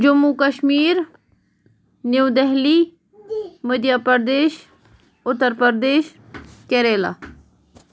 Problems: background sounds at intervals